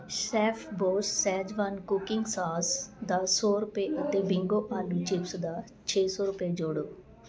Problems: constant background noise